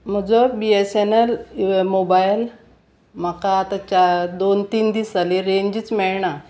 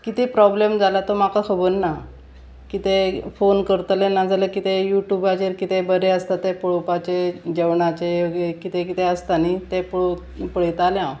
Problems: constant background noise